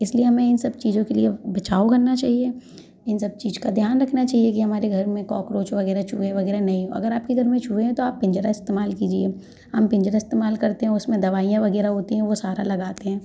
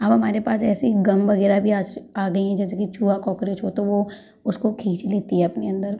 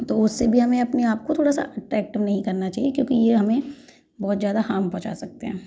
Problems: background sounds at intervals